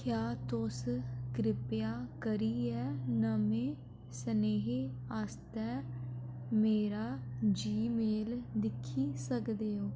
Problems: none marked